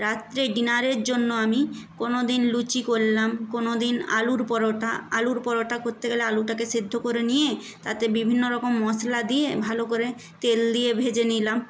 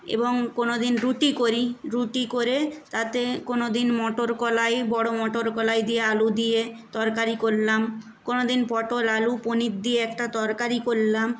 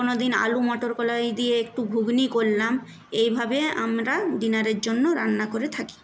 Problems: none marked